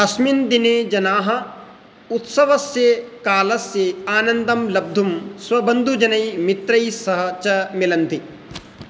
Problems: constant background noise